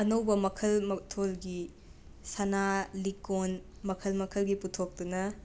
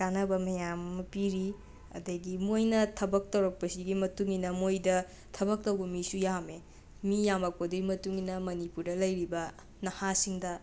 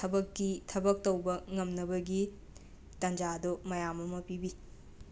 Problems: background sounds at intervals